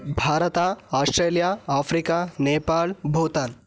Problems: none marked